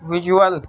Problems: background sounds at intervals